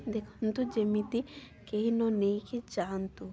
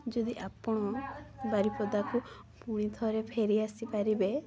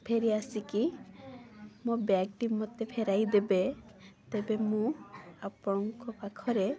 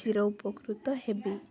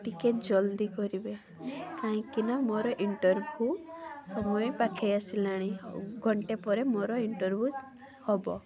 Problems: constant background noise, continuous background conversations